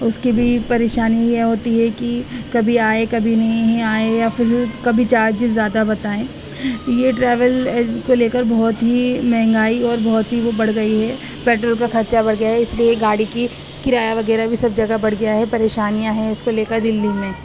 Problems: constant background noise, background conversations at intervals